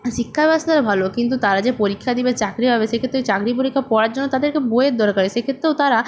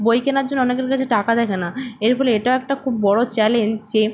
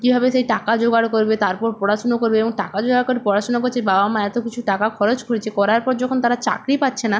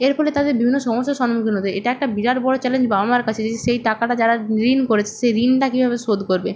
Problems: none marked